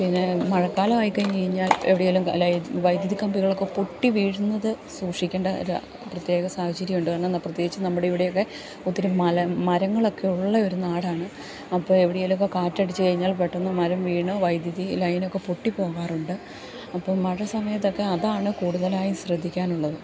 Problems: constant background noise, low volume